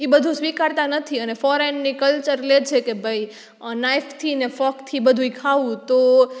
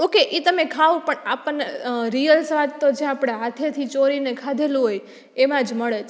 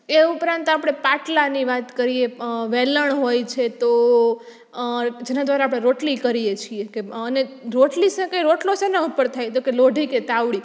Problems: none marked